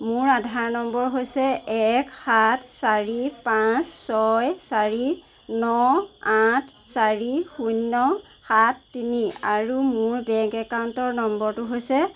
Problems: constant background noise